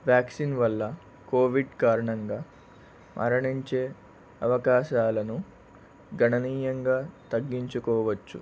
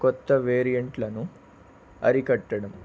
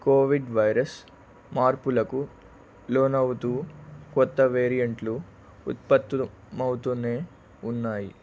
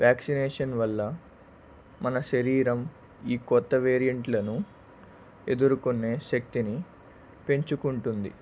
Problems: none marked